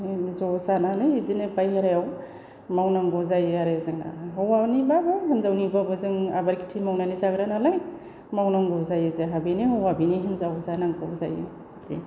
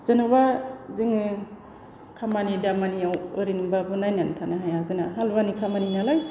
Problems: constant background noise